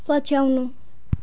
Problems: background sounds at intervals